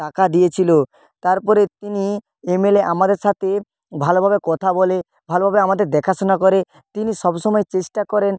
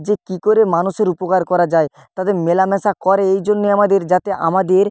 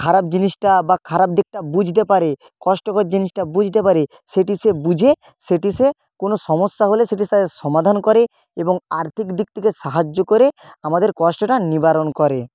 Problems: none marked